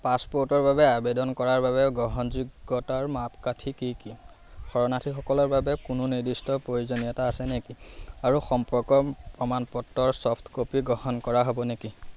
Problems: constant background noise